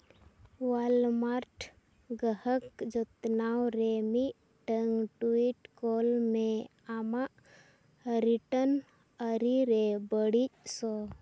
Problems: low volume